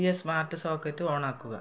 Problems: low volume